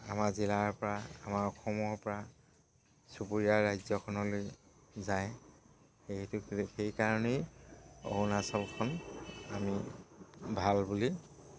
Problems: background sounds at intervals